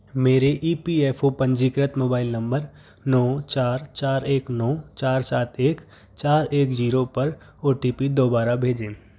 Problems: background sounds at intervals